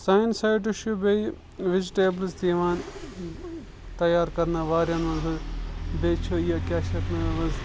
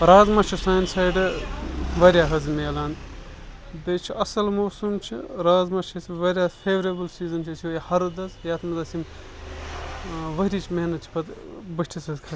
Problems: constant background noise